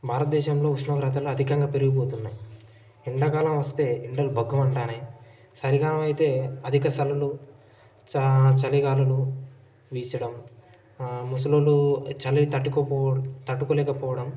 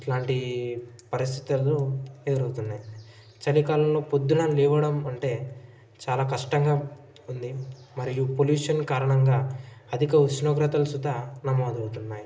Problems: background sounds at intervals, background conversations at intervals